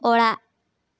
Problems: none marked